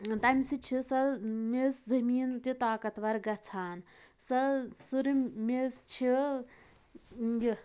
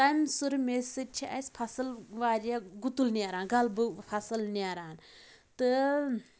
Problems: background sounds at intervals